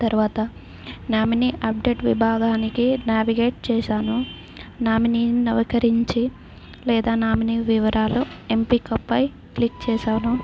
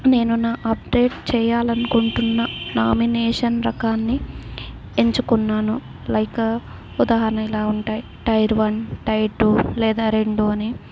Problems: none marked